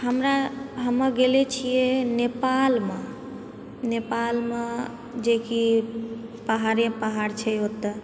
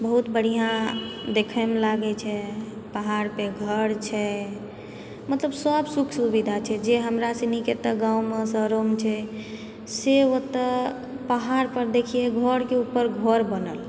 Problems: none marked